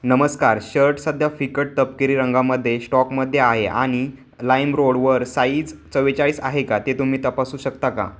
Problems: constant background noise, background conversations at intervals